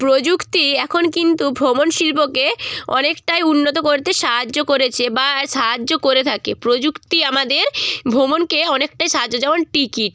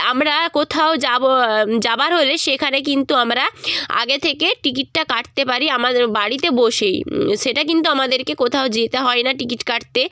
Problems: background sounds at intervals